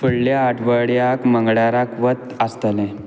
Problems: constant background noise